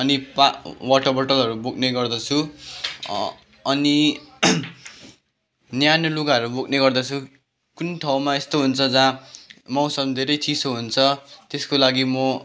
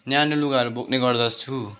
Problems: none marked